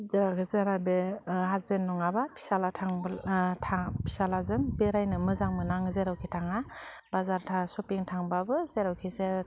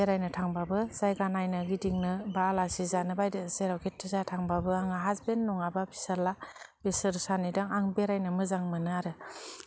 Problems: low volume